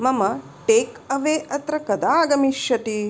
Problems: none marked